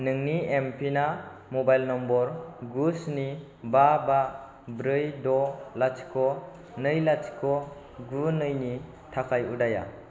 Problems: constant background noise